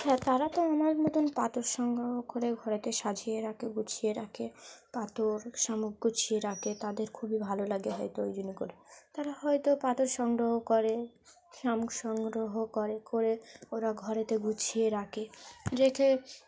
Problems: background sounds at intervals, background conversations at intervals